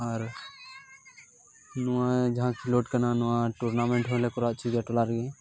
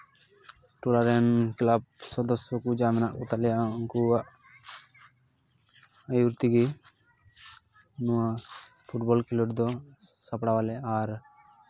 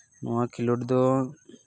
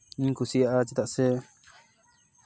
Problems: constant background noise, continuous background conversations